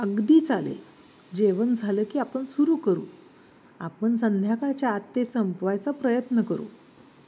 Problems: none marked